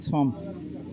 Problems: none marked